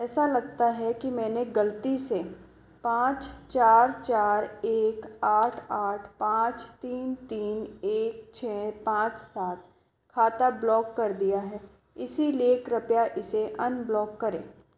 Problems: background sounds at intervals, echo